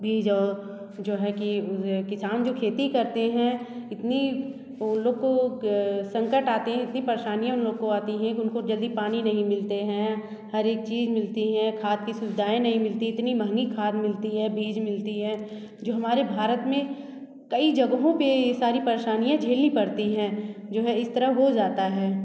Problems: constant background noise, echo